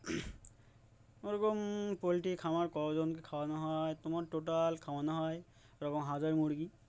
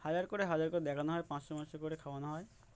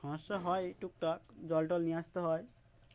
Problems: none marked